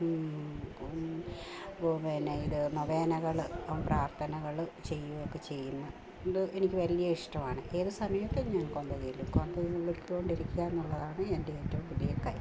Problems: low volume